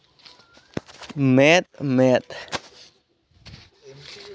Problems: none marked